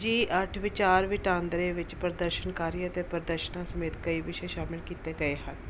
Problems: background sounds at intervals